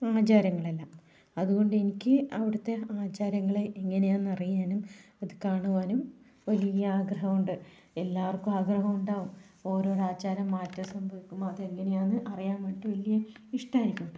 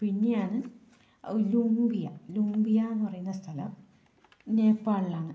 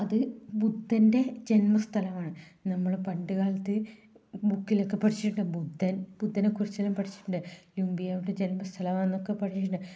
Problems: low volume